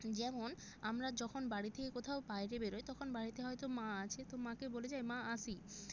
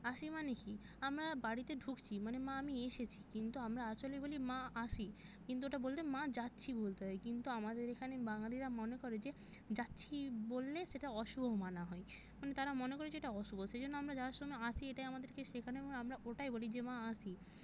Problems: background sounds at intervals